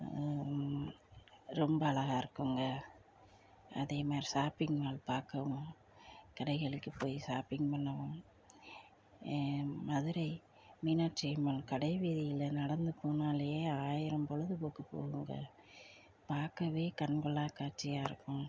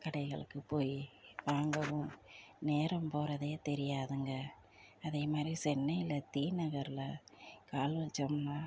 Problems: low volume